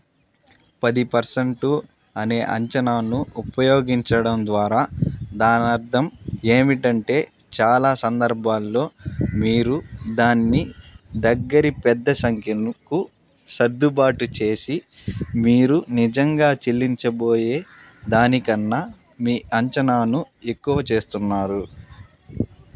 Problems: none marked